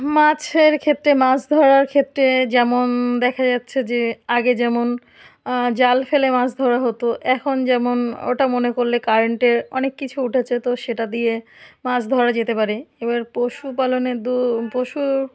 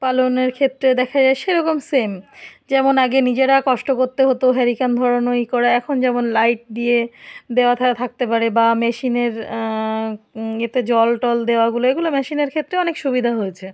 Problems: none marked